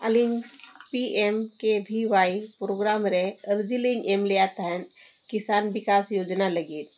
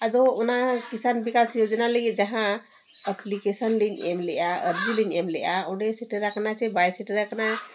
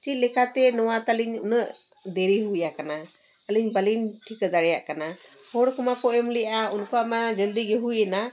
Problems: background sounds at intervals